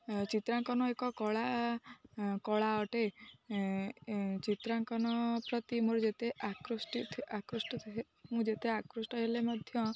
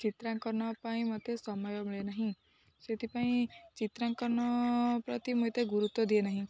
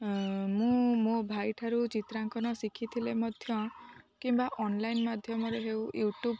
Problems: none marked